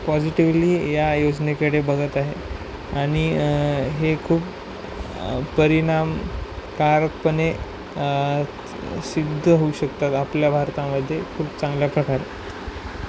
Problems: constant background noise